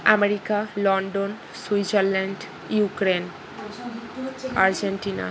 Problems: constant background noise, background conversations at intervals